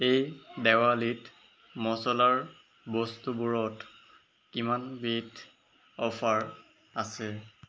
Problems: background sounds at intervals